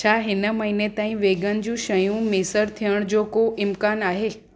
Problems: constant background noise, echo